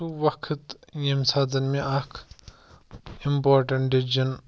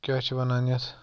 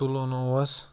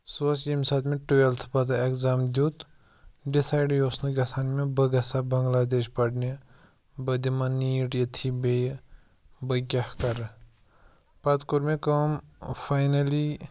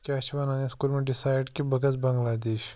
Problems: none marked